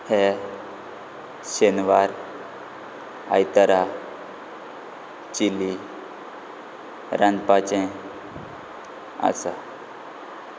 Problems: none marked